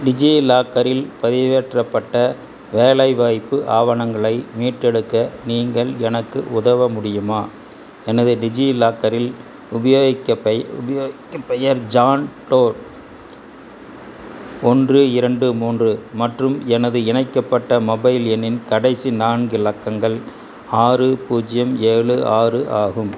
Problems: constant background noise